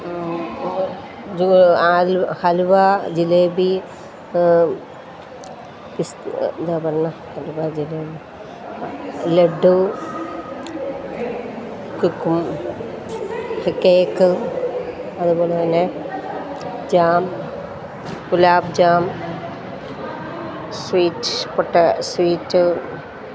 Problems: constant background noise